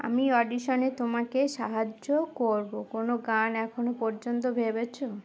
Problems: none marked